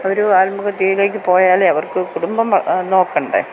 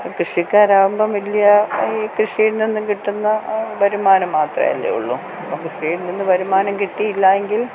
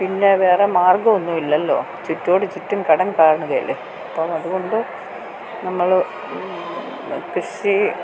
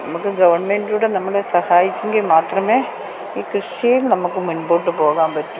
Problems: constant background noise